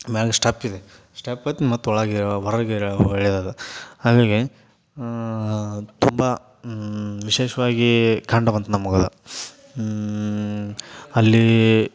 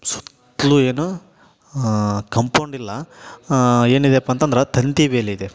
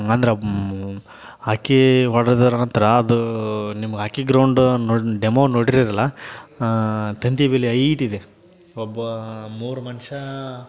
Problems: none marked